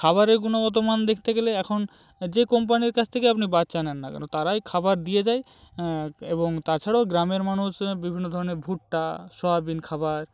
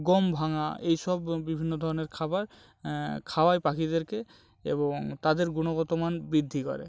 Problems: none marked